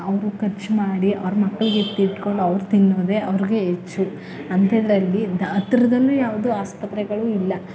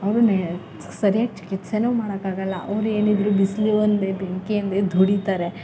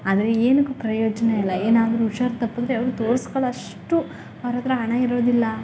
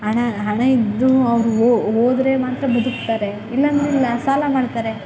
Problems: none marked